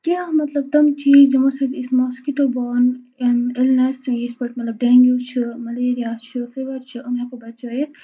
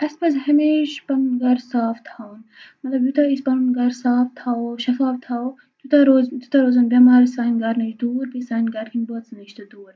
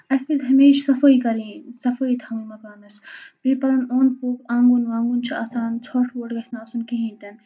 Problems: constant background noise